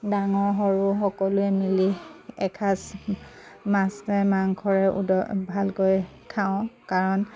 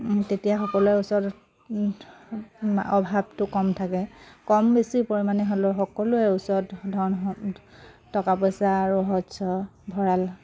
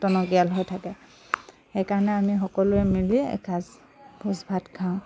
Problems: constant background noise, background conversations at intervals